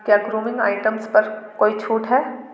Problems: background sounds at intervals, echo